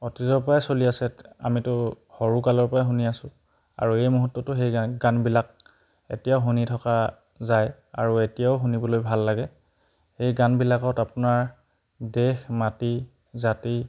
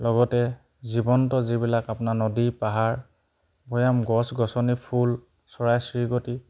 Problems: background sounds at intervals